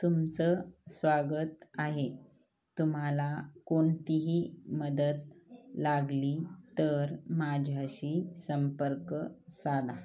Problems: none marked